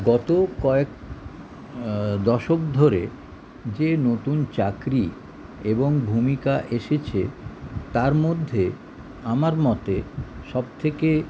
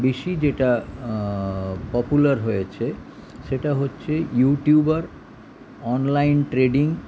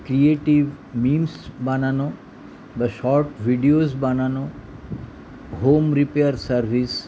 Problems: constant background noise